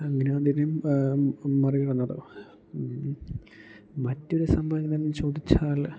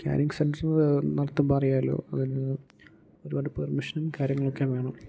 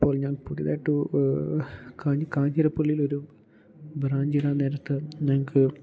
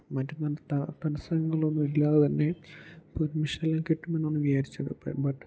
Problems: low volume